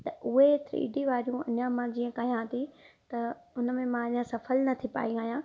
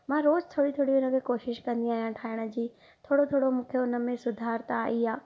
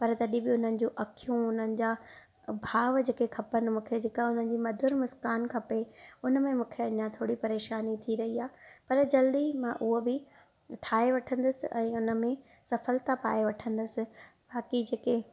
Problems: none marked